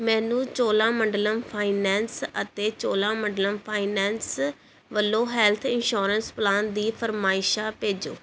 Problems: none marked